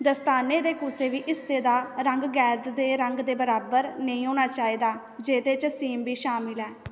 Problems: background sounds at intervals, echo